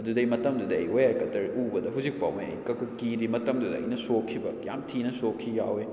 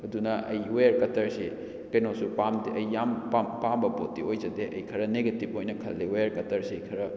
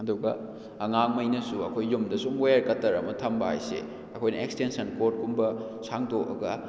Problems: none marked